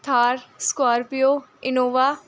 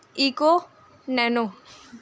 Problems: constant background noise